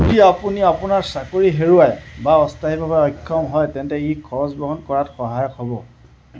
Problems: none marked